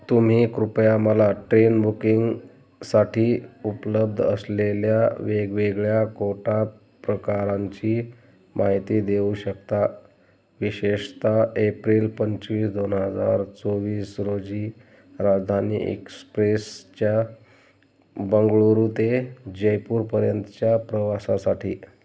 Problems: none marked